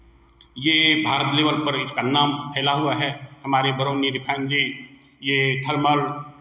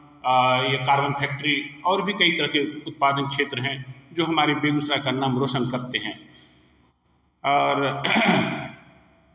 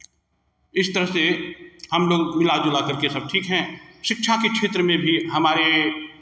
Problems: none marked